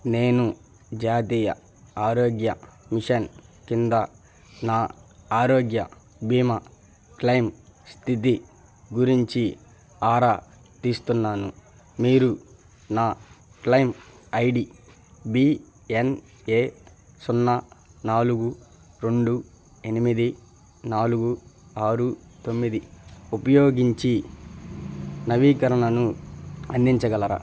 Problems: none marked